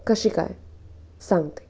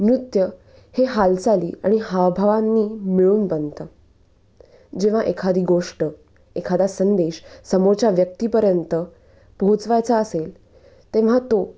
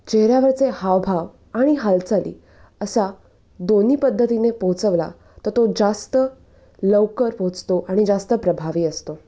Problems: none marked